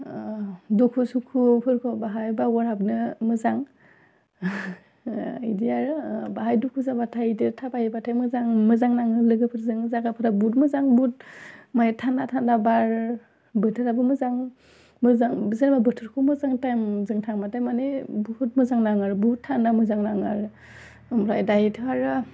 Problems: none marked